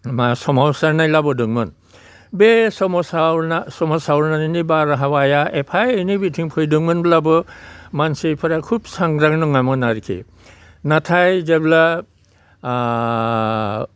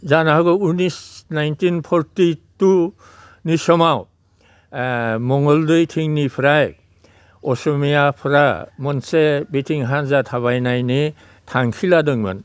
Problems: constant background noise, low volume